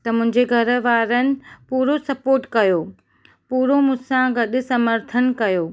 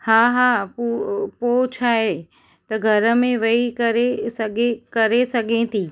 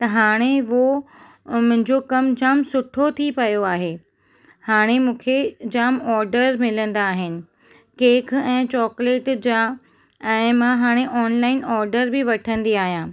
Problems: none marked